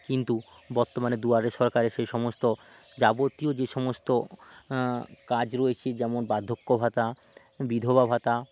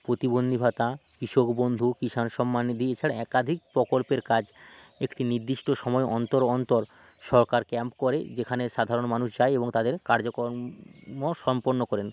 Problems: constant background noise